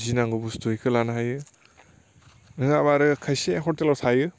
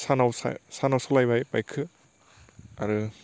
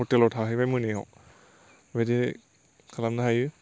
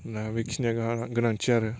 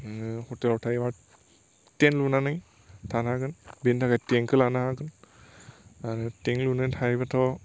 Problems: constant background noise